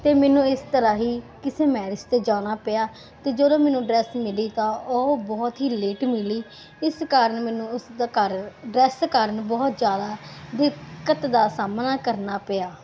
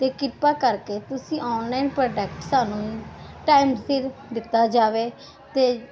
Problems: background sounds at intervals